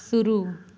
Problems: none marked